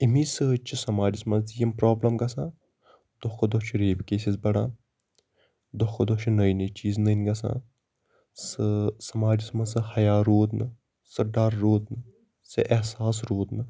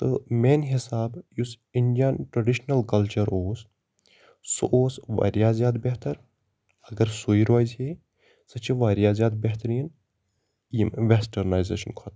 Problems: constant background noise